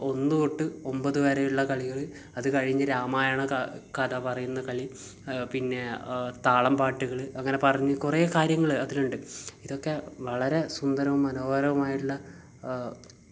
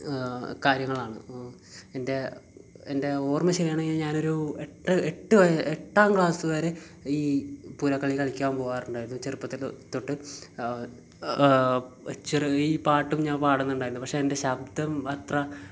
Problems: none marked